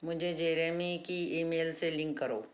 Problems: background sounds at intervals